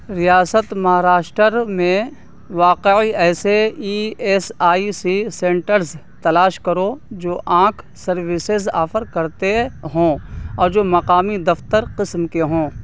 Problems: constant background noise